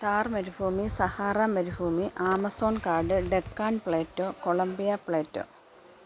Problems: background sounds at intervals